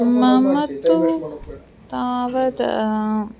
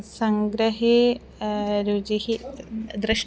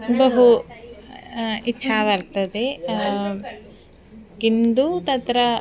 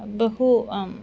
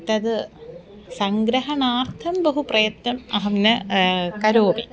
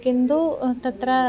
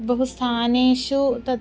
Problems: continuous background conversations